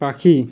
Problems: constant background noise